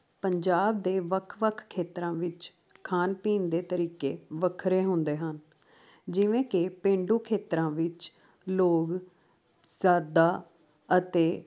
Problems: constant background noise